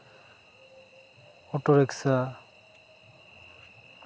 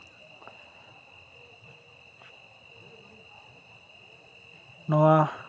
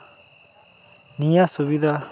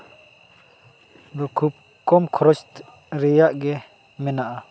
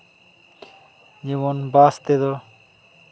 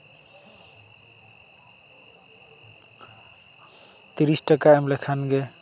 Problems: constant background noise, continuous background conversations